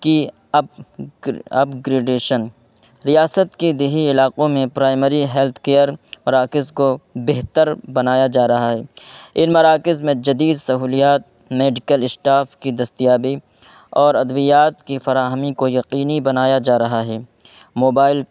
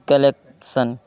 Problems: constant background noise